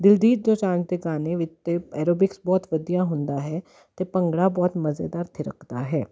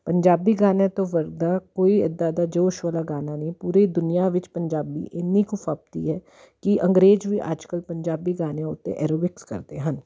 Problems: constant background noise